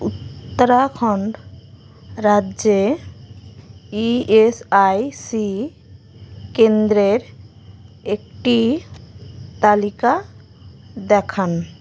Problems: constant background noise